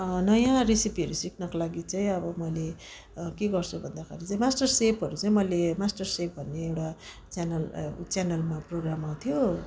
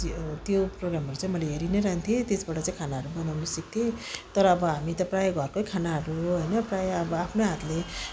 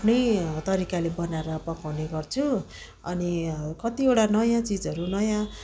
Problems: none marked